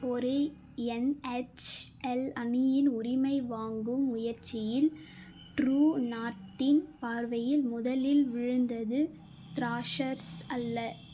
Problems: background sounds at intervals